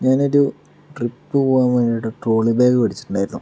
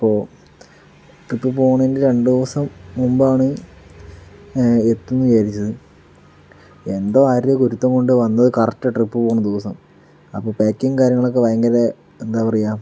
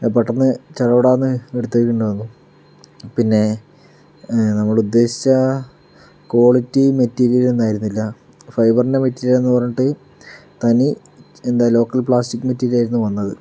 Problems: background sounds at intervals